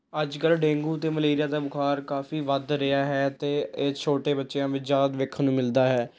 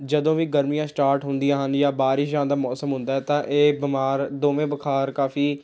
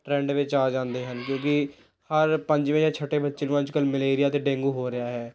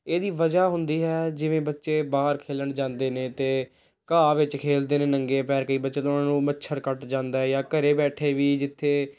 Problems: none marked